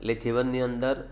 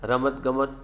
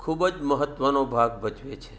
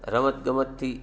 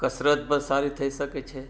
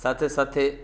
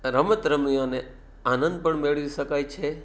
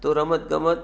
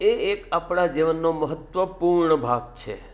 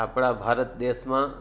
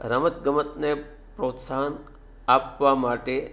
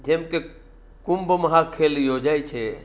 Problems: background sounds at intervals